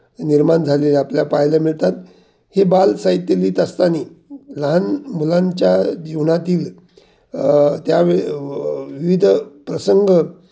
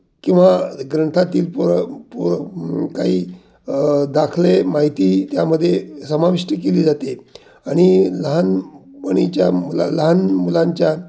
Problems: none marked